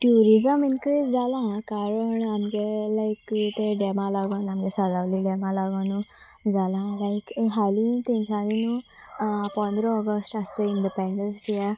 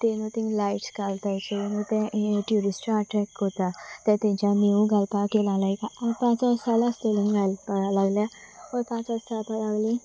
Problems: constant background noise, background conversations at intervals